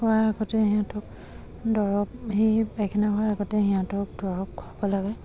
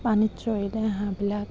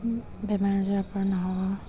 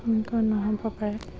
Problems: constant background noise